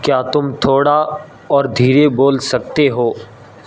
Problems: constant background noise